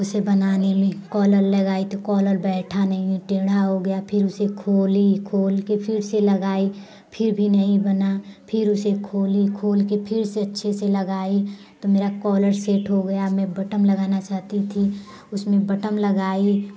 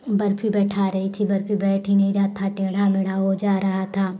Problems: constant background noise